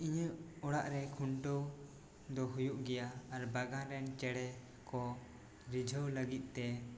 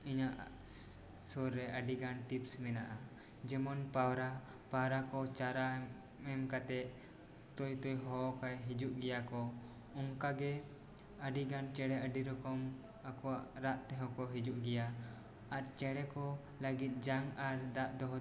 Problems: background sounds at intervals